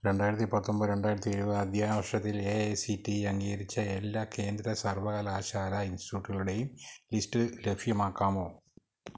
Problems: low volume